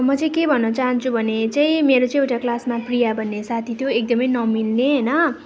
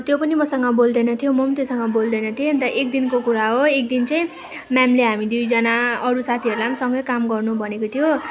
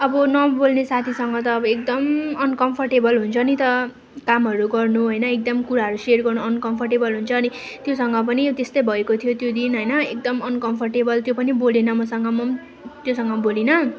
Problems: background sounds at intervals